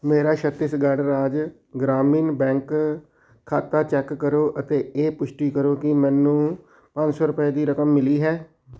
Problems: background sounds at intervals